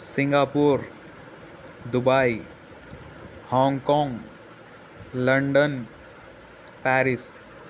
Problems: constant background noise